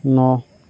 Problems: none marked